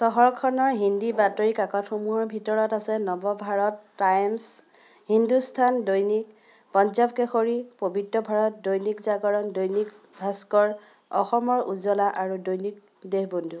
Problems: constant background noise, continuous background conversations